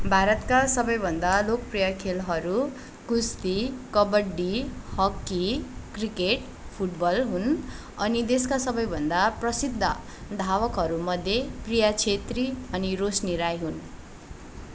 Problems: none marked